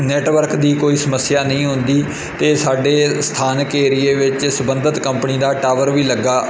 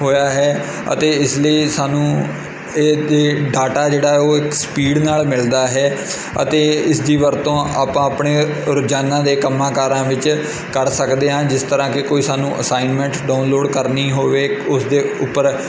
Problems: constant background noise